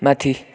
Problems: background conversations at intervals